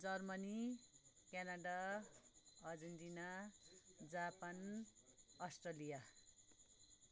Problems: low volume